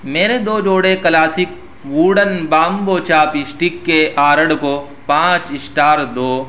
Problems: constant background noise